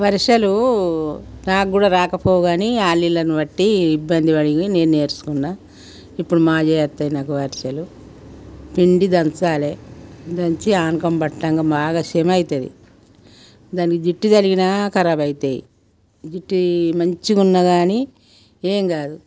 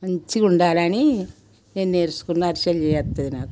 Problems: background sounds at intervals